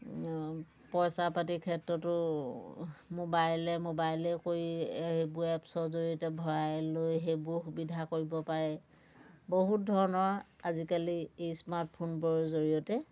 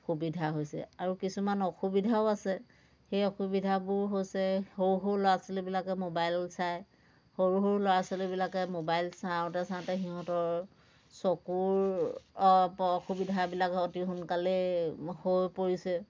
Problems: constant background noise, background conversations at intervals